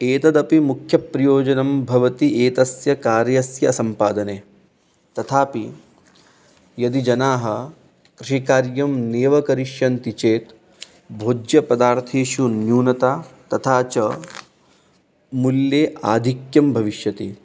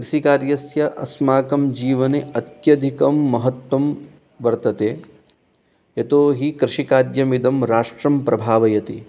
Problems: none marked